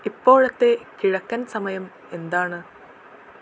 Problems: constant background noise, low volume